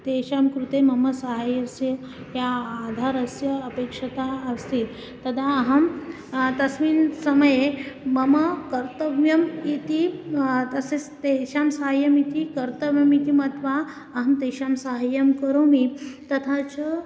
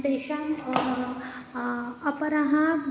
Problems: constant background noise